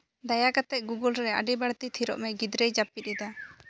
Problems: background sounds at intervals